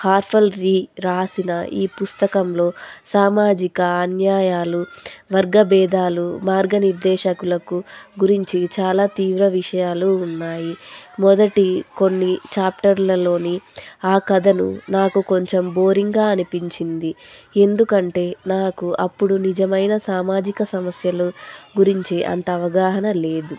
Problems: constant background noise